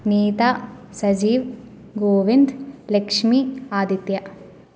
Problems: none marked